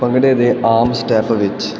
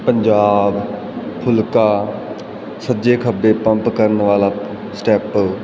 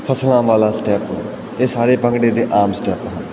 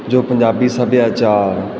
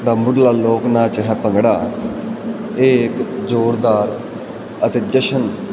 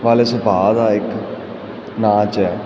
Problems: continuous background conversations